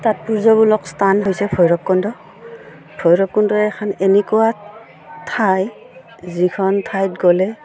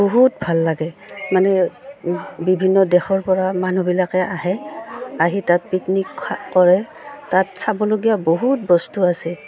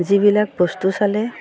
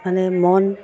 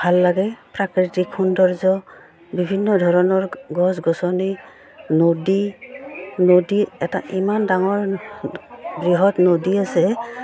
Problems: background sounds at intervals